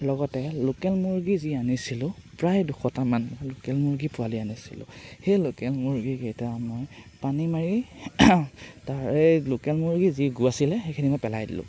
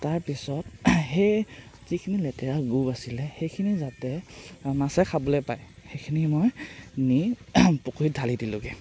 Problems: constant background noise